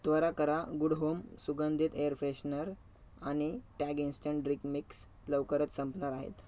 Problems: background sounds at intervals